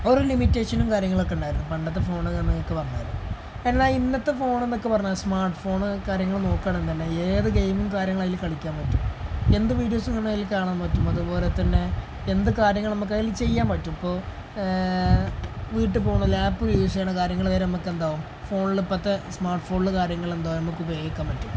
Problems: none marked